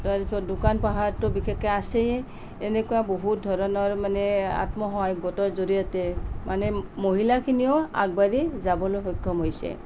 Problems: none marked